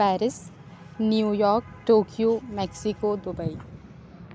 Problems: none marked